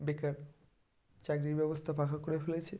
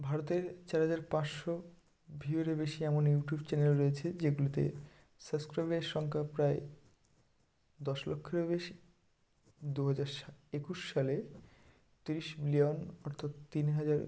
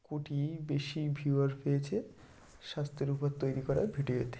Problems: background sounds at intervals